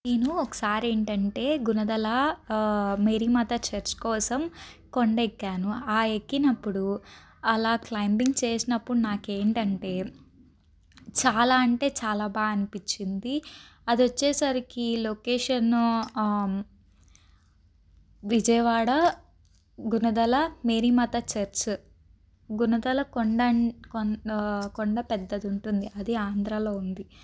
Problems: background sounds at intervals